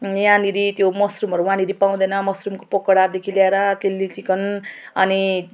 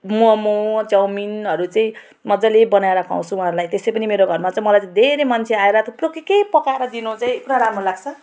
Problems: none marked